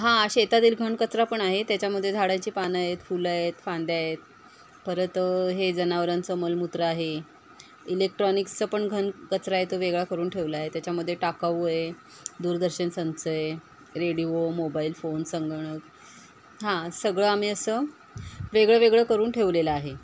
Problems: none marked